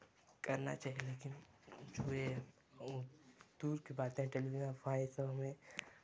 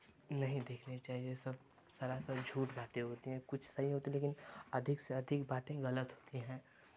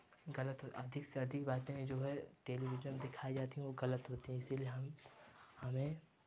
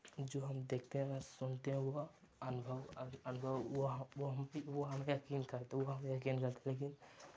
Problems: none marked